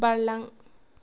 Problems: none marked